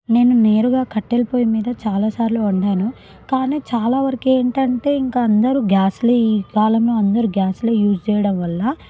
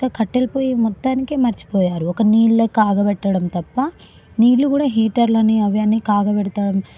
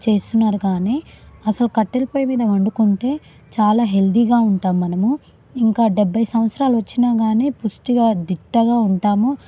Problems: background conversations at intervals